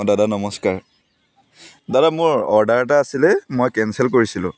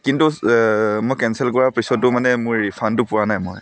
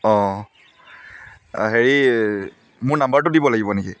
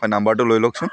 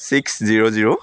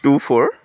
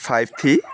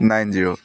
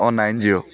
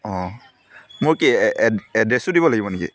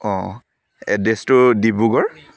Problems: none marked